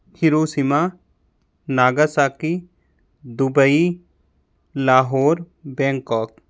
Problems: constant background noise